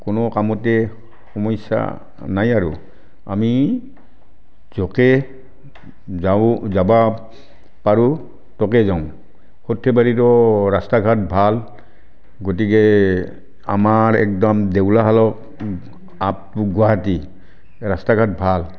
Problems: none marked